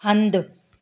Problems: none marked